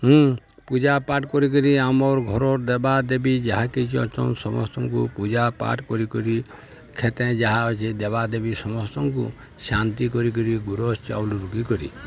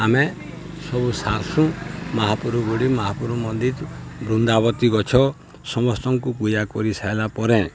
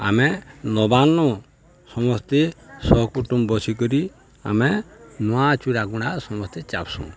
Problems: constant background noise